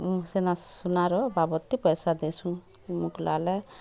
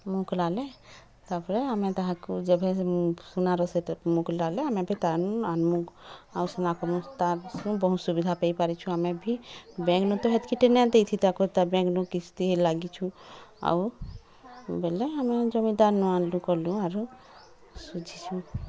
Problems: constant background noise, continuous background conversations